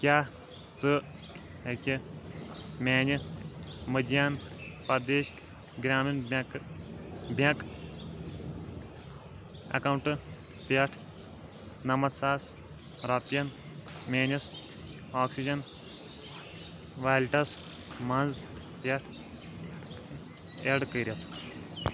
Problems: constant background noise